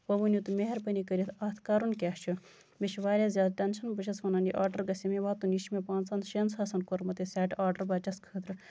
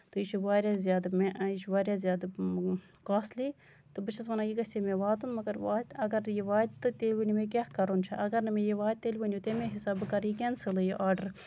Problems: constant background noise